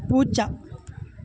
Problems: constant background noise